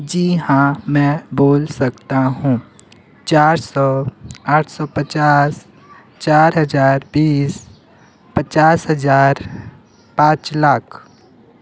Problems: constant background noise